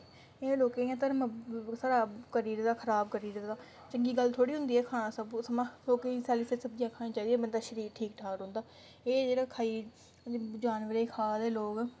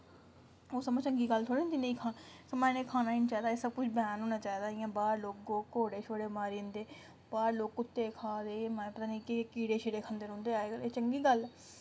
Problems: none marked